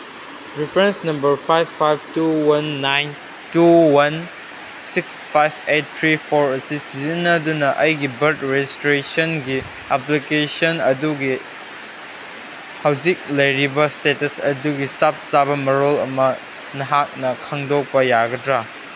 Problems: background sounds at intervals